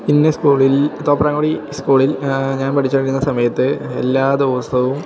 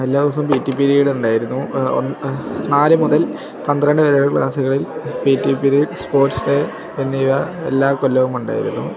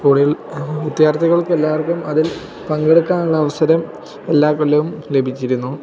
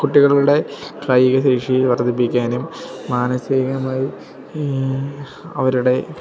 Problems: background sounds at intervals